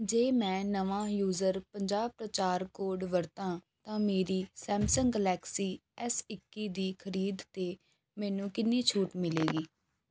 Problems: background sounds at intervals